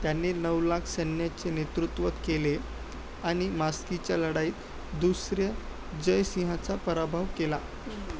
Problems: constant background noise, background conversations at intervals, low volume